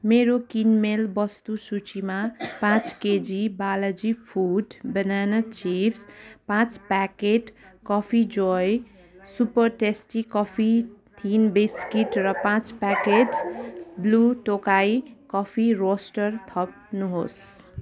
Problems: constant background noise, continuous background conversations